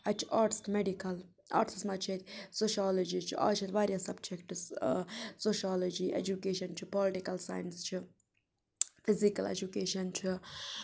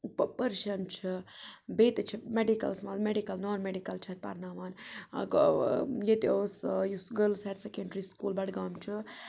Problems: background sounds at intervals, low volume